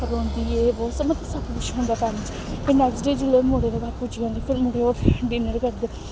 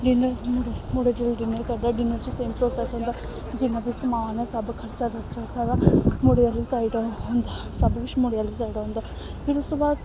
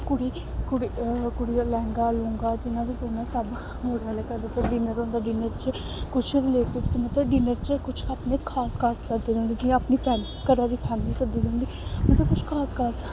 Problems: constant background noise